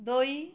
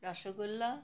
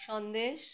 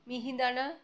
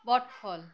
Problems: none marked